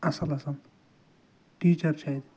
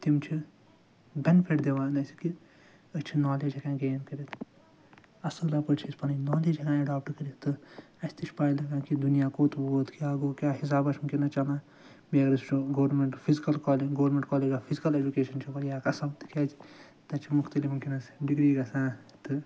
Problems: background sounds at intervals, low volume